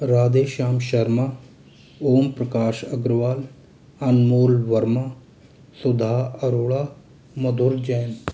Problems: constant background noise